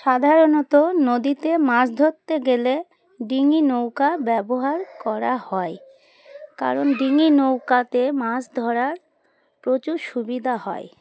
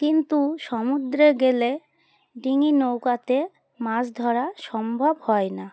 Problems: constant background noise